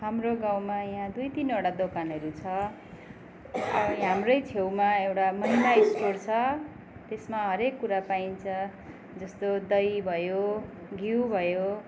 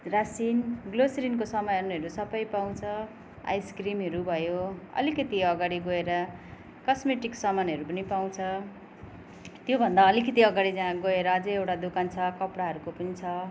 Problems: background sounds at intervals